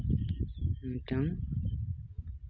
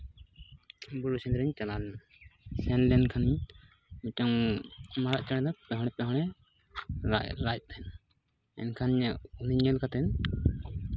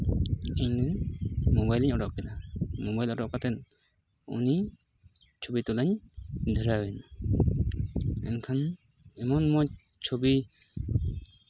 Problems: constant background noise